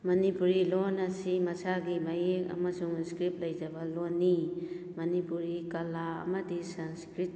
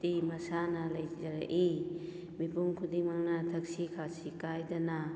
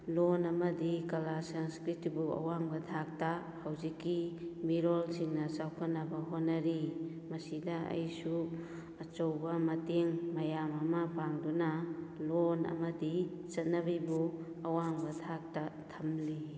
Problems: background sounds at intervals